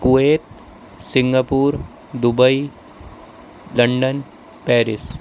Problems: constant background noise